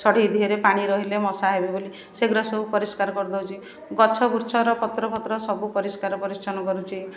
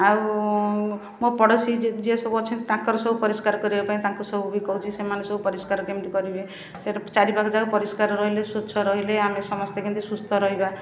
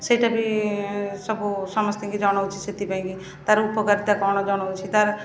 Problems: constant background noise, continuous background conversations